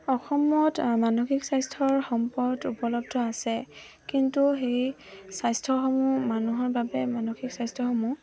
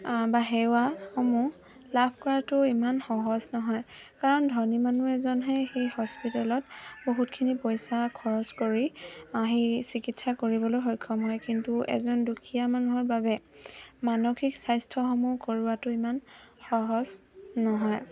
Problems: constant background noise, background conversations at intervals